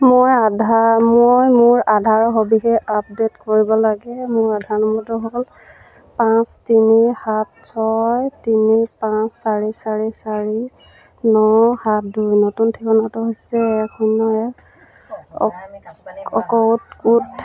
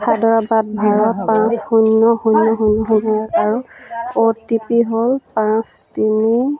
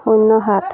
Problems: none marked